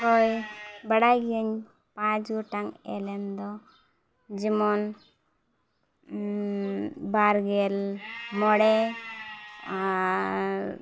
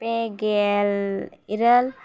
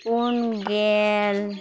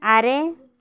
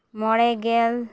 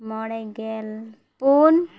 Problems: constant background noise